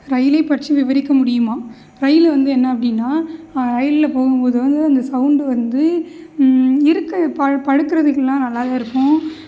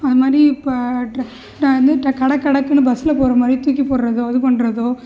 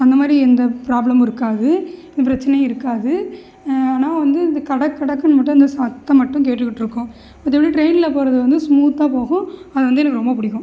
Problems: none marked